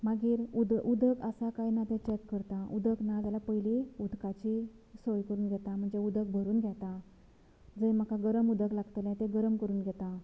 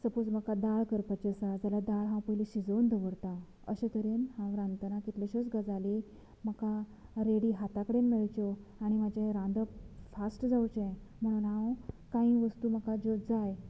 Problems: none marked